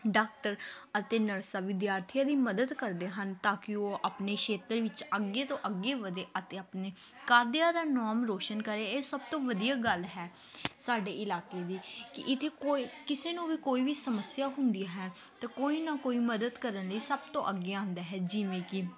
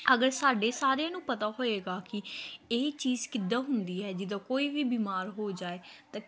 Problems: continuous background conversations